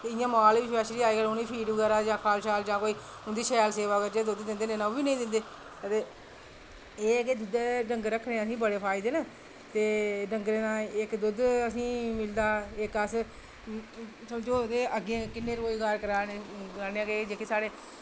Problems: none marked